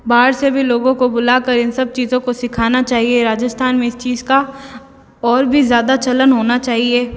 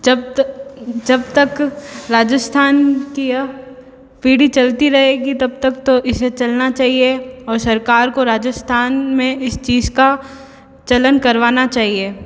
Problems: echo